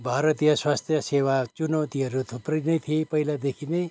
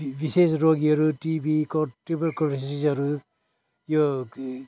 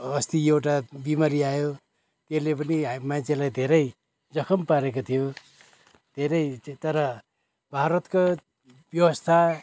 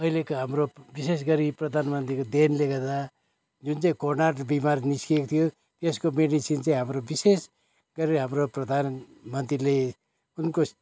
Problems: background sounds at intervals